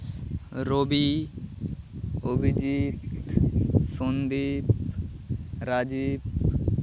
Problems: constant background noise, low volume